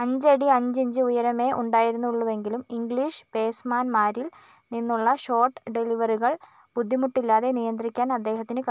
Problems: none marked